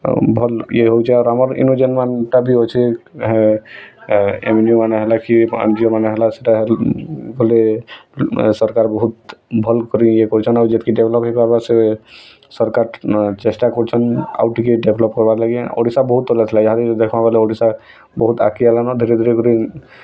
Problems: constant background noise